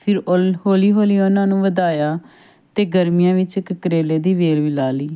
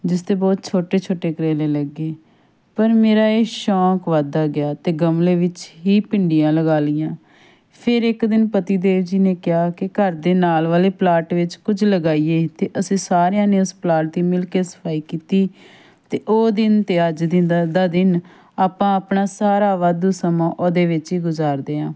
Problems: background sounds at intervals